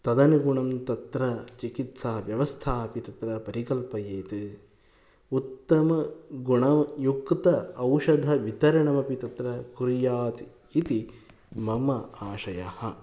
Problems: none marked